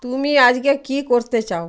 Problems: none marked